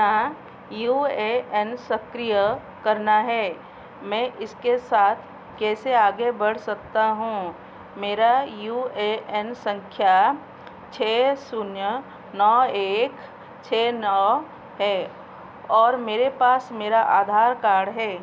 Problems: constant background noise